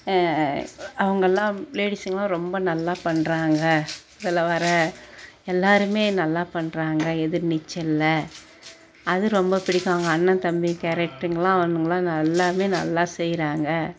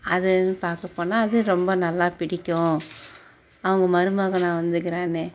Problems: background sounds at intervals